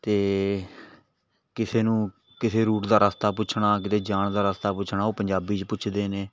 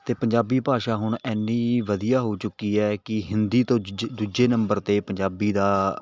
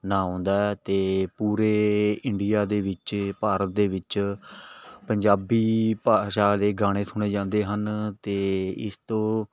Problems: background sounds at intervals, background conversations at intervals